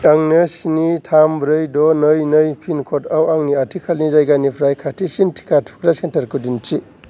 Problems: none marked